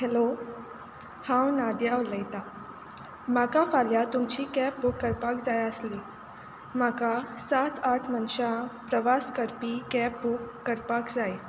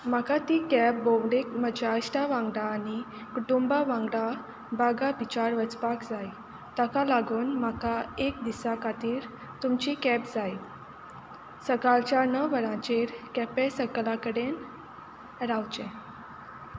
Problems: background sounds at intervals